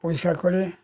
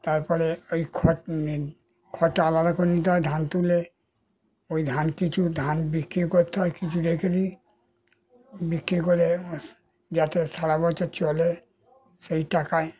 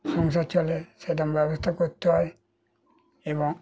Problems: constant background noise